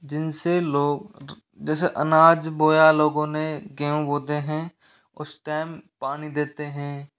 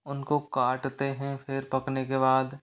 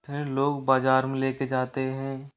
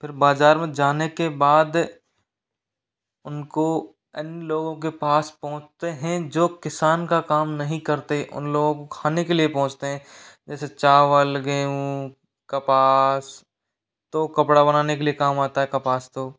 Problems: background sounds at intervals, echo